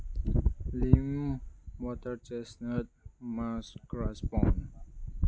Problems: none marked